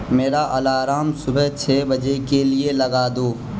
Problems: constant background noise